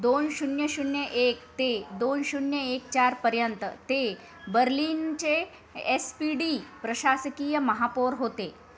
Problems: constant background noise, background conversations at intervals